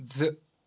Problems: none marked